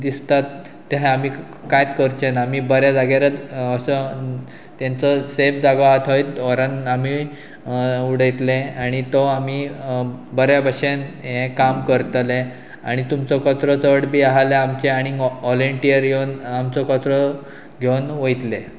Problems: none marked